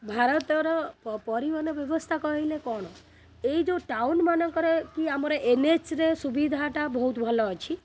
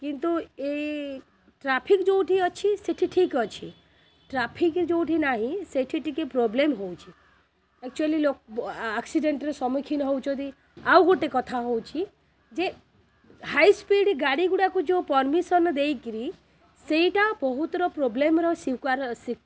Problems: constant background noise